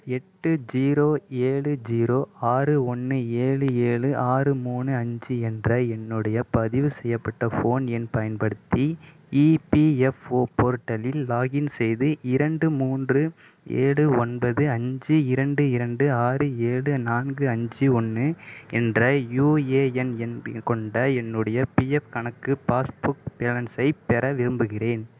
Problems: none marked